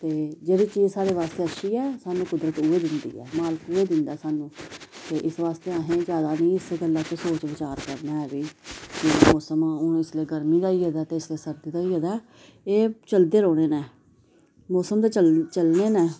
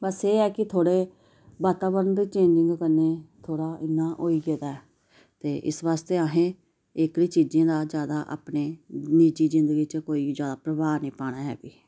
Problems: background sounds at intervals